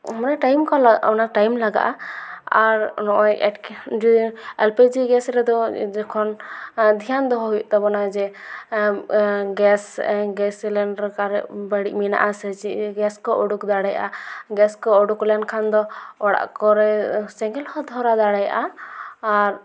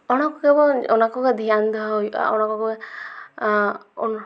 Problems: background sounds at intervals